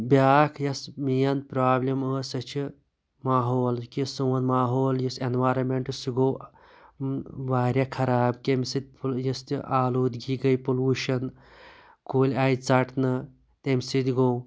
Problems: constant background noise